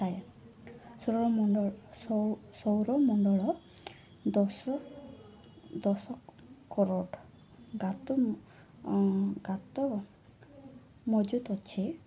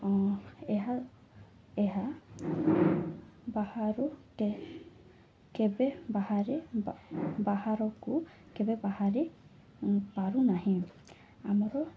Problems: none marked